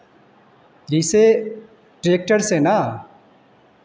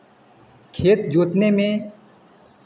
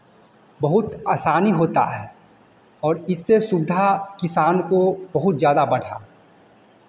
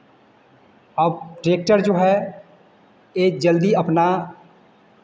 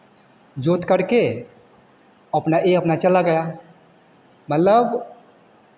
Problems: none marked